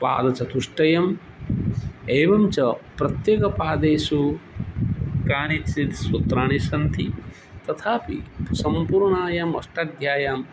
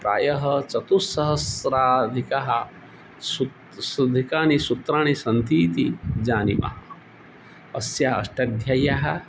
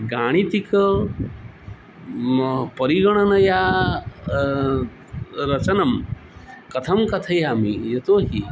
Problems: none marked